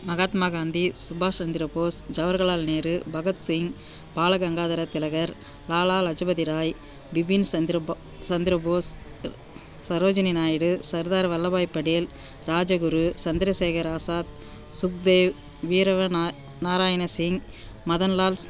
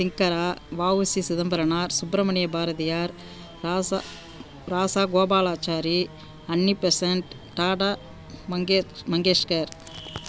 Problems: background sounds at intervals